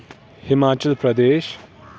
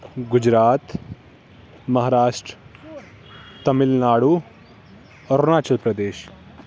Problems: constant background noise